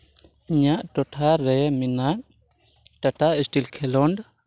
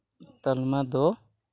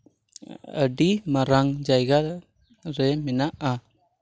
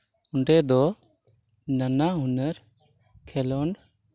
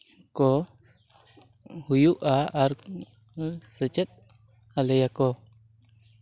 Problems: background sounds at intervals